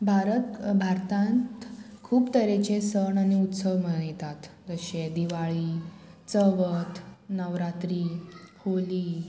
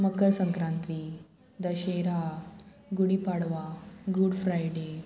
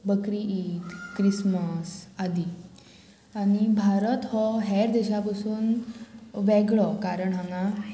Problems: none marked